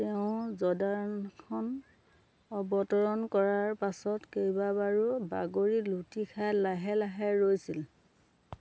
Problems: none marked